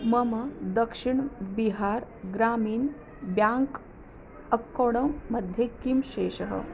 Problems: constant background noise